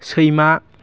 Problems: low volume